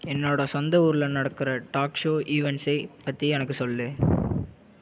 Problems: none marked